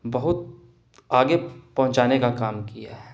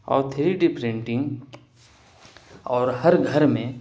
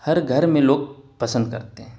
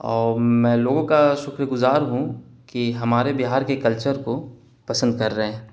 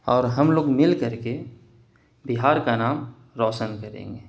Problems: none marked